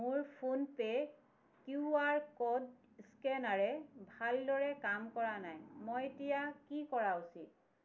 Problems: none marked